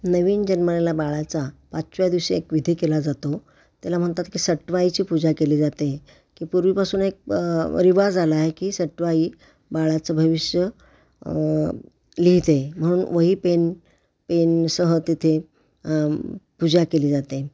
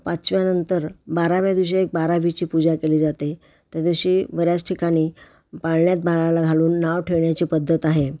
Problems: none marked